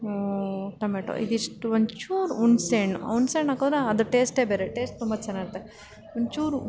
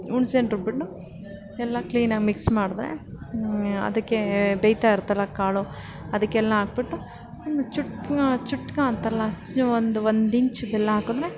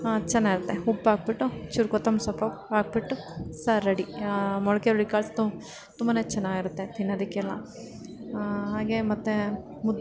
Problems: background sounds at intervals